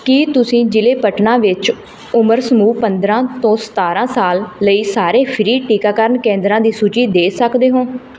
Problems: background sounds at intervals